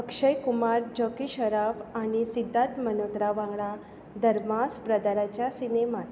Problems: constant background noise